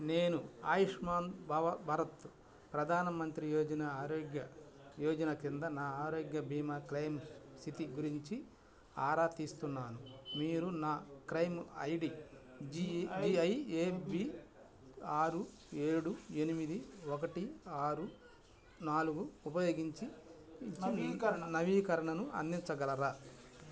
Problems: none marked